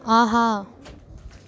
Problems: constant background noise